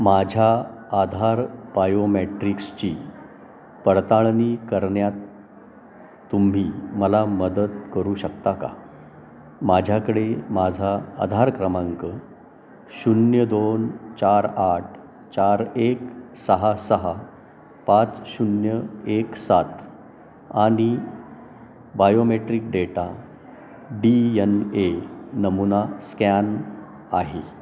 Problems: constant background noise, background conversations at intervals, echo